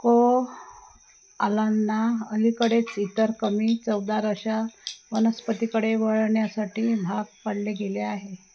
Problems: constant background noise